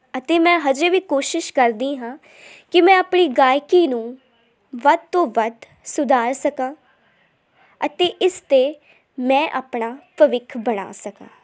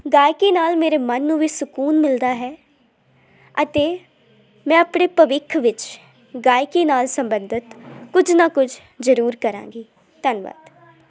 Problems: none marked